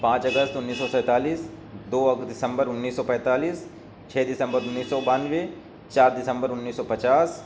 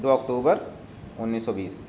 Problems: none marked